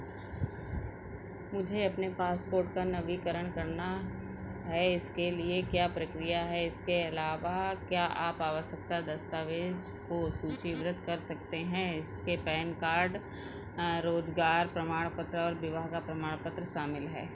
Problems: constant background noise